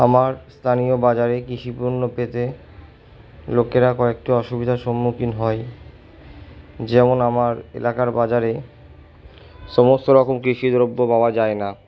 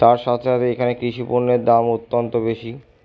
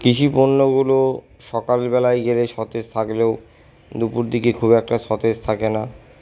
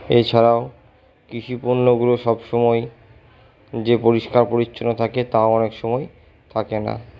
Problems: none marked